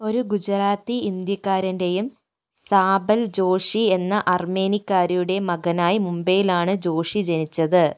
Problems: none marked